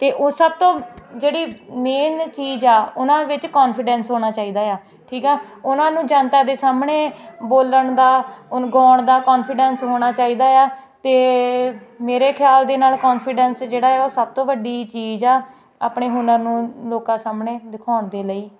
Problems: constant background noise